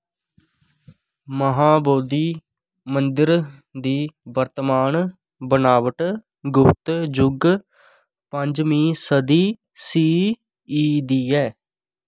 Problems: none marked